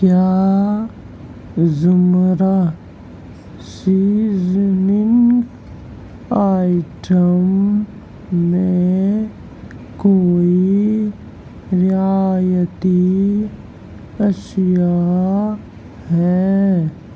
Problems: constant background noise